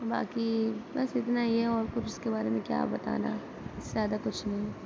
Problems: none marked